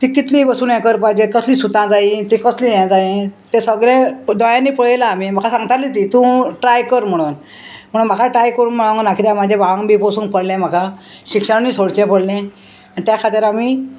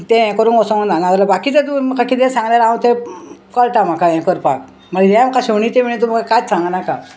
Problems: constant background noise